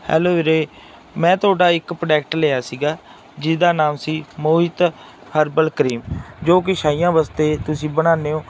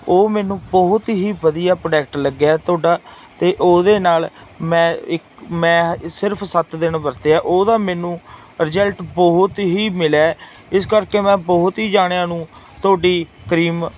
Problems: background sounds at intervals